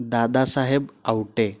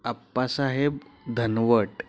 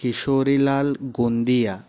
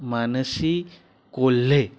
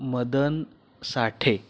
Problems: background sounds at intervals